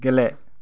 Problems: low volume